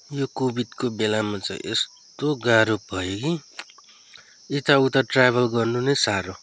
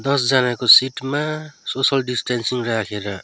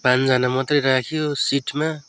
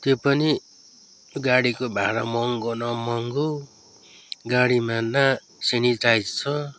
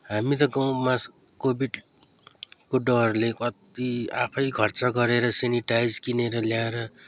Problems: background sounds at intervals